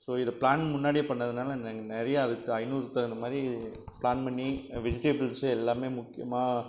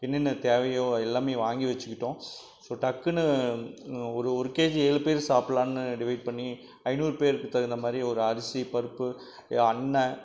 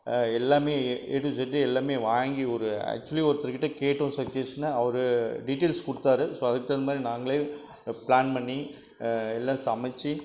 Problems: none marked